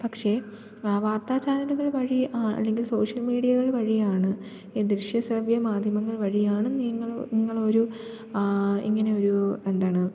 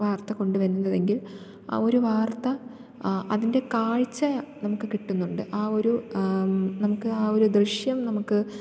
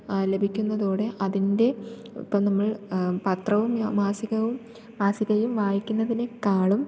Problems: low volume